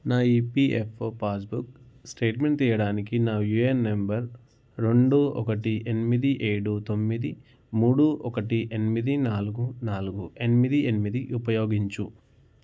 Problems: none marked